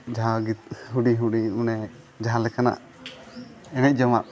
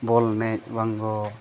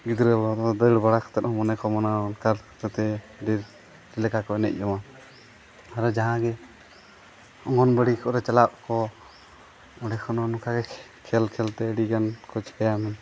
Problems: constant background noise